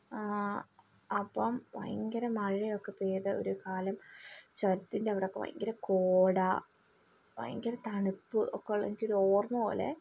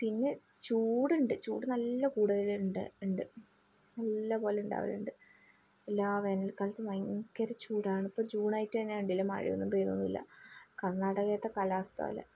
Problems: low volume